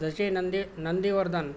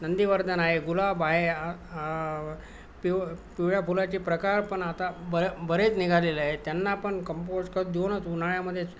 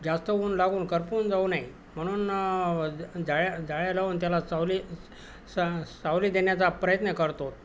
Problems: constant background noise